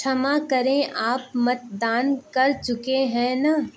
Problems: background sounds at intervals